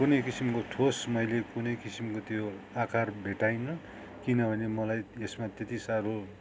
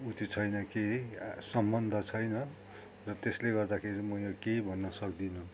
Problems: constant background noise